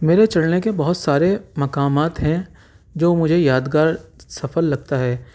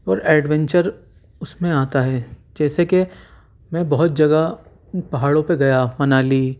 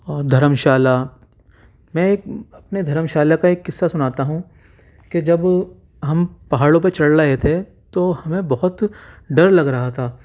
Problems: none marked